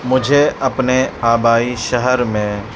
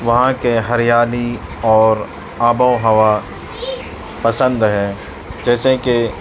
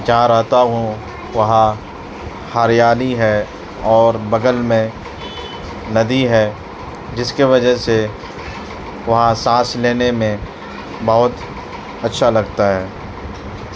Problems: constant background noise, background conversations at intervals